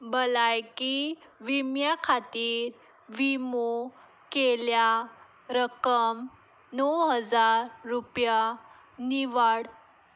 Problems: background sounds at intervals